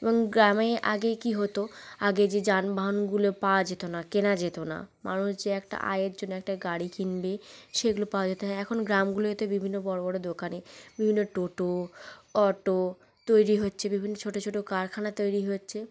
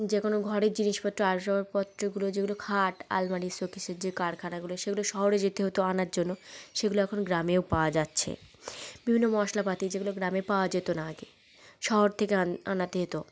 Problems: none marked